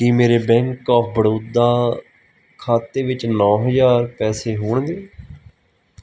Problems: background sounds at intervals